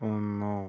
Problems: low volume